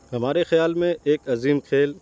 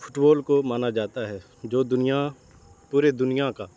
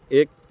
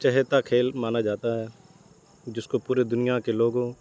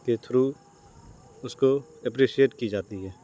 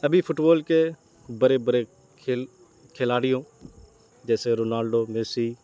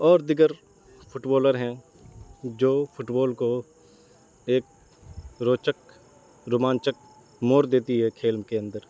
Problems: constant background noise